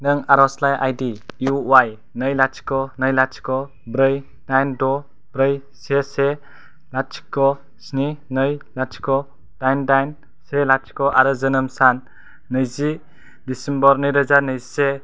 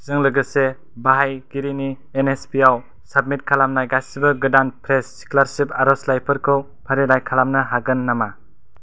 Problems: none marked